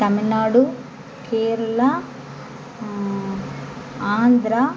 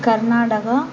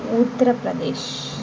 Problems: constant background noise